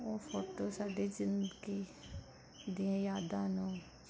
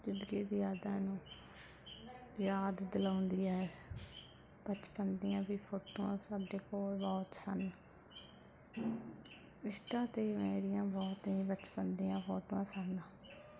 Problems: constant background noise